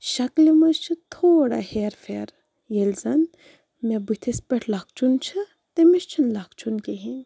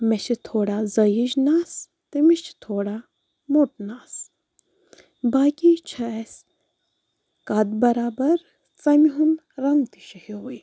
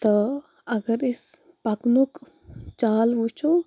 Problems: none marked